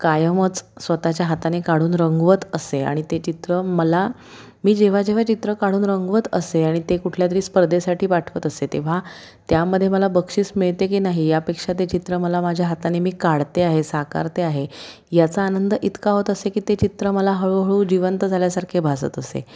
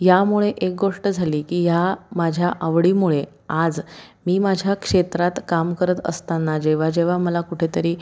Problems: constant background noise, background conversations at intervals